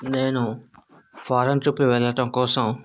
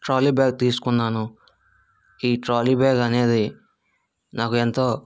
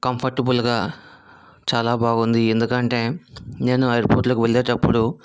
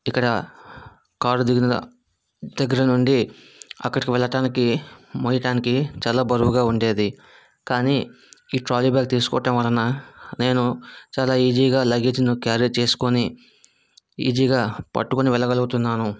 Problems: background sounds at intervals